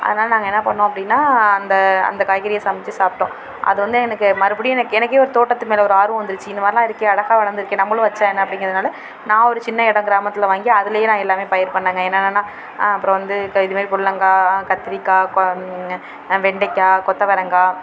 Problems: constant background noise